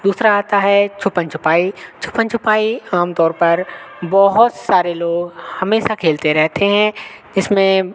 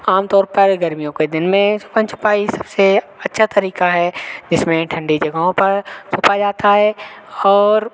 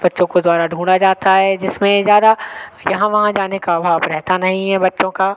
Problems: constant background noise